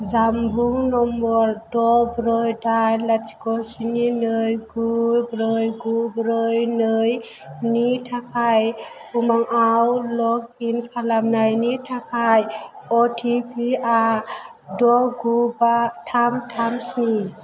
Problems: constant background noise